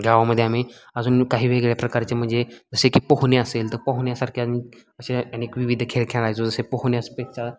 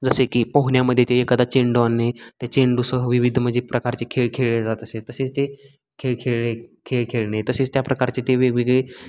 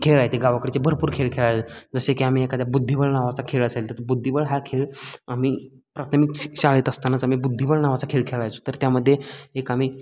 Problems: constant background noise, background conversations at intervals